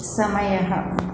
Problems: none marked